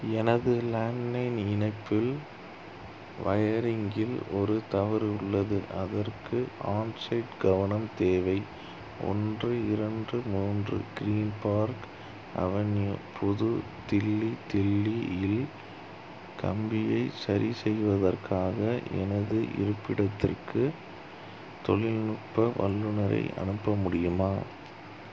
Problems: none marked